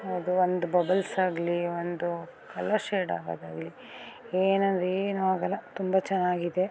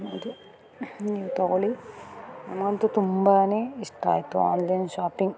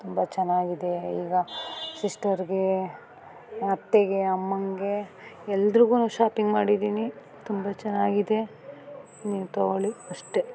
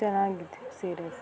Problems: background sounds at intervals